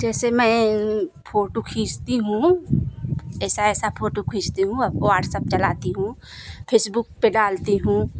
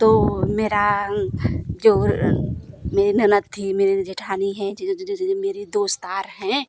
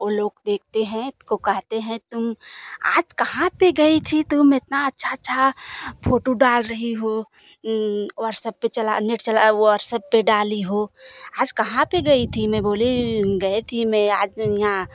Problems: none marked